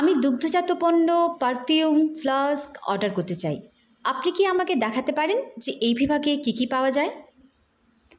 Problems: constant background noise